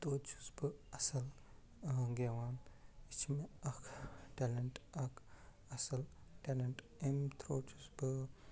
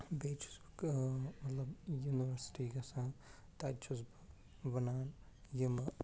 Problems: constant background noise, low volume